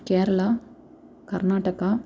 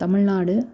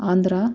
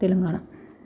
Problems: background sounds at intervals